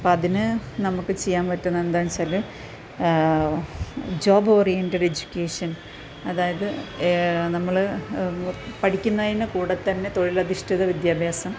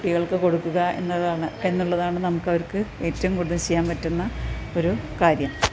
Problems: constant background noise